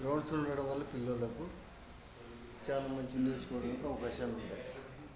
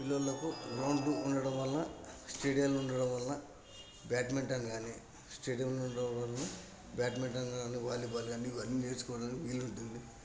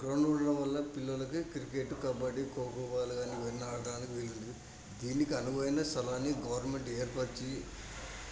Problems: constant background noise, background conversations at intervals